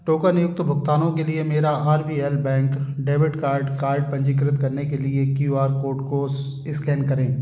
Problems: constant background noise